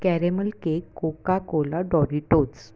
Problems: none marked